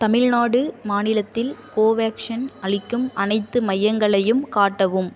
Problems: none marked